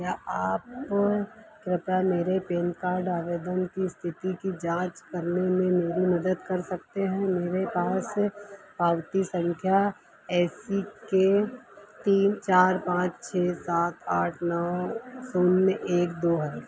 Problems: constant background noise